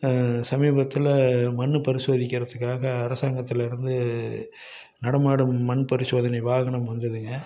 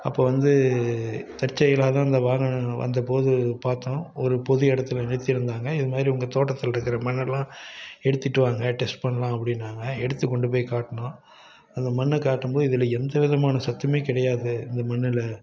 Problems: background conversations at intervals